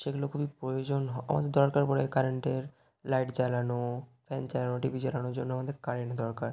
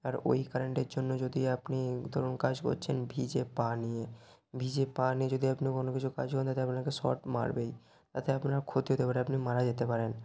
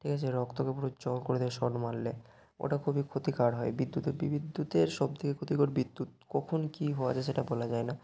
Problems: background sounds at intervals